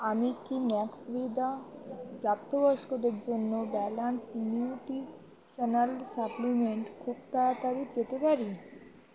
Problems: constant background noise, continuous background conversations